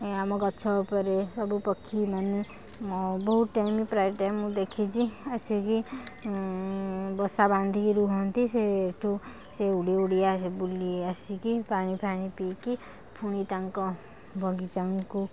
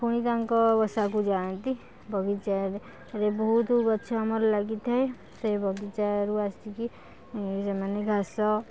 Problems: none marked